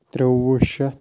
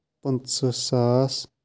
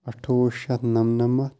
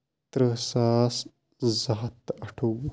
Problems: background sounds at intervals